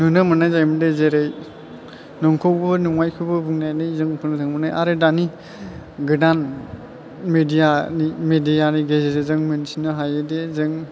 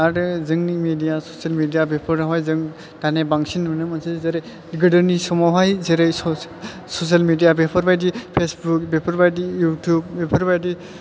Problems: none marked